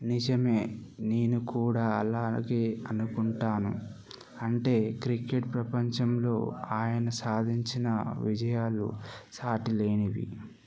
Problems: none marked